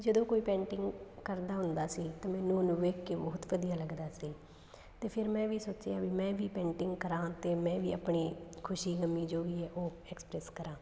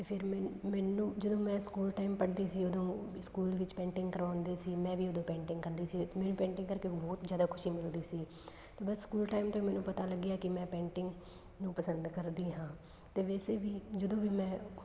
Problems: background sounds at intervals